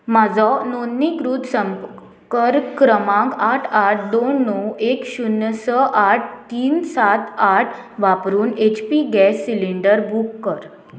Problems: constant background noise